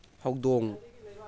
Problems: continuous background conversations